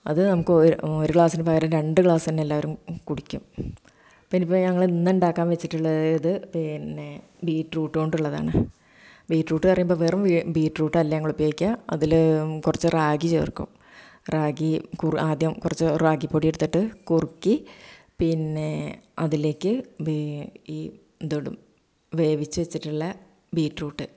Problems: none marked